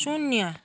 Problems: background sounds at intervals